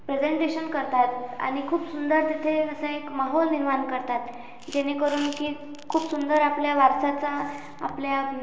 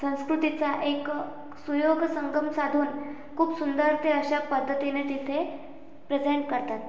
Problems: none marked